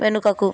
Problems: background conversations at intervals